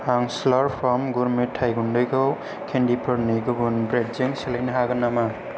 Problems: low volume